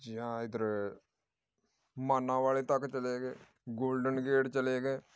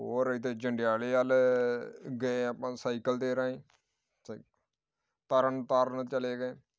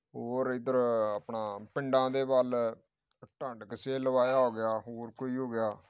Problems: none marked